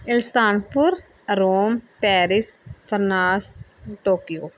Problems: background sounds at intervals